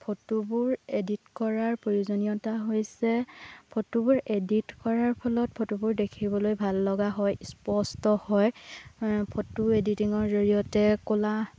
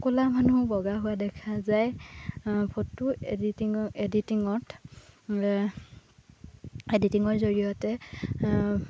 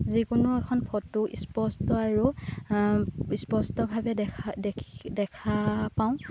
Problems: constant background noise